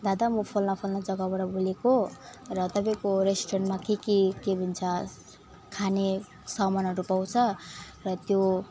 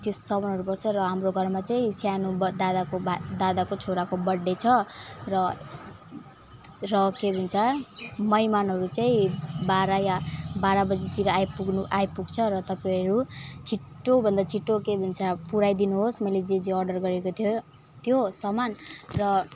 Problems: background sounds at intervals